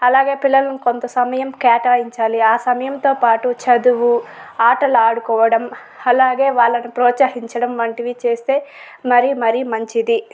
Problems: none marked